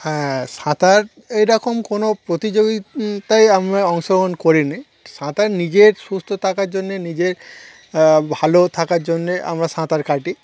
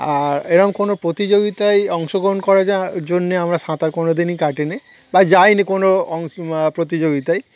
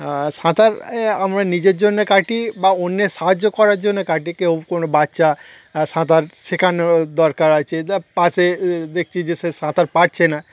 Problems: constant background noise, continuous background conversations